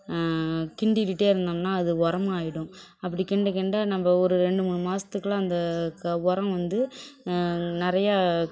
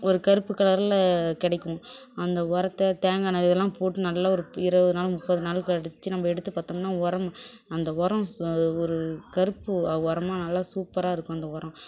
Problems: background sounds at intervals, background conversations at intervals